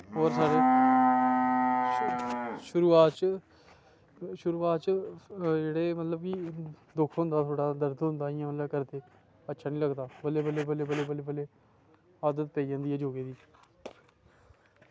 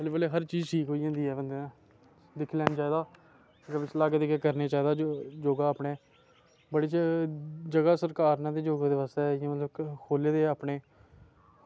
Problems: constant background noise